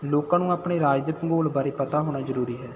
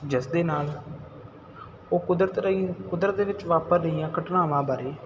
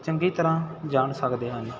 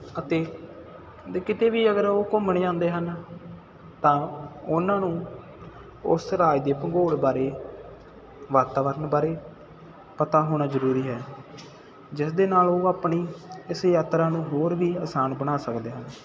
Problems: constant background noise